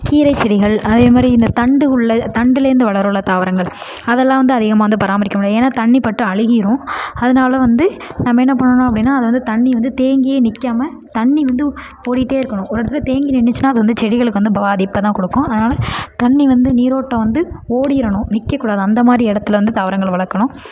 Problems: low volume